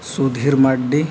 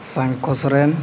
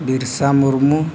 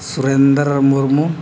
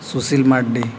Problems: constant background noise